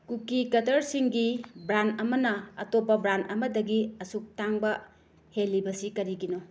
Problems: none marked